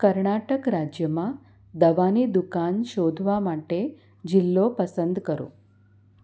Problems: none marked